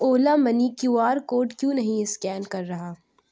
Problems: none marked